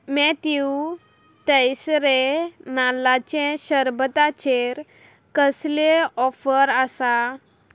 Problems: background sounds at intervals